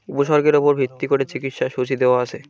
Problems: background conversations at intervals